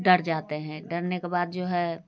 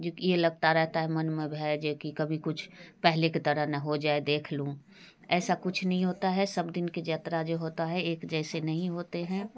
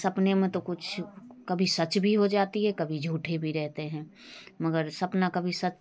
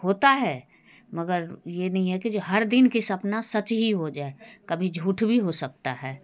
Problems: background sounds at intervals